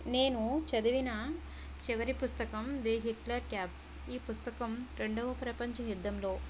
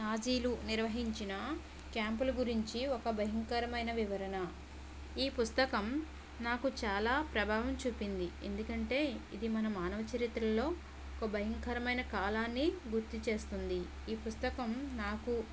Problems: none marked